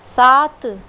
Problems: constant background noise